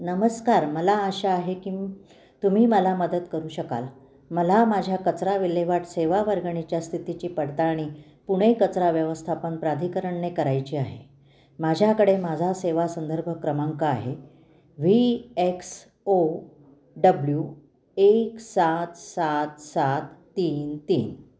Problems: background sounds at intervals